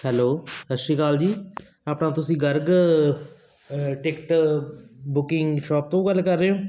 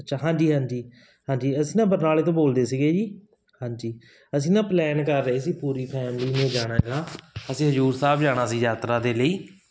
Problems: constant background noise